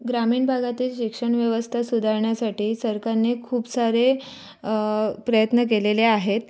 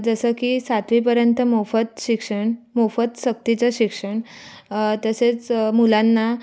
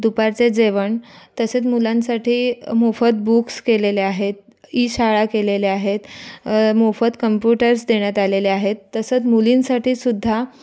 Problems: background sounds at intervals, continuous background conversations